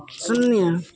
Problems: constant background noise, echo